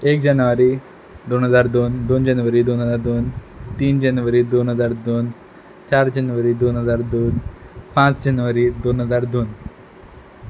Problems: background sounds at intervals